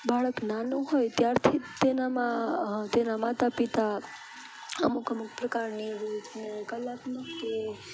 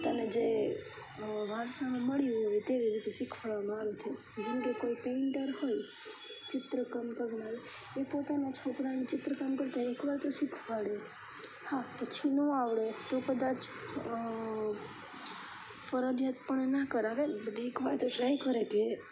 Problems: constant background noise